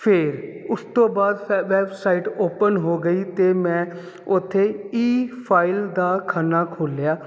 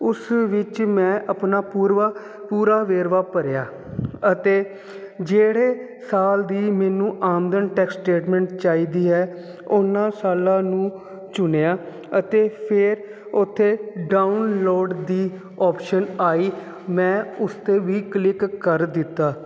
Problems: constant background noise